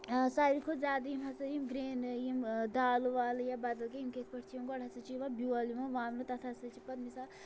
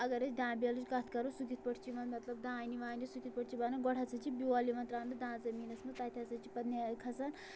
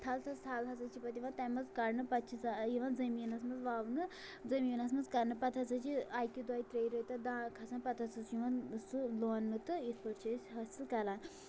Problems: none marked